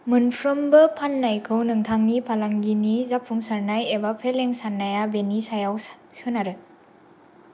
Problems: none marked